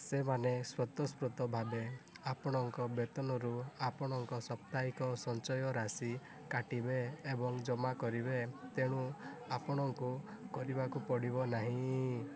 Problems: none marked